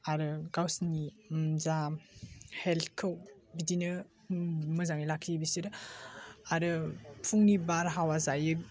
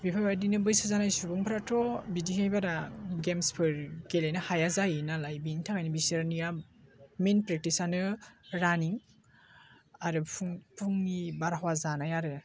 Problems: constant background noise